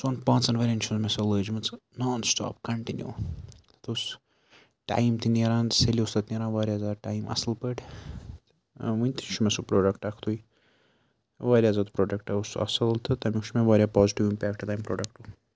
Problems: background sounds at intervals